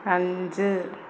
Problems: constant background noise